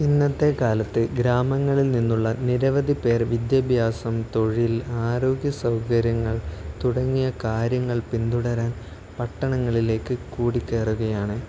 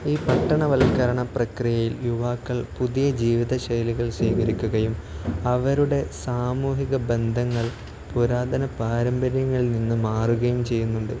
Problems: none marked